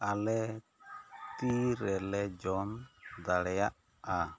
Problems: none marked